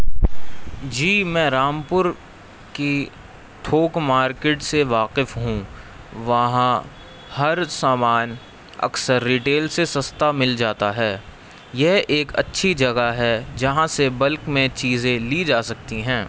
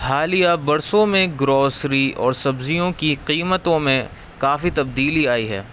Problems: constant background noise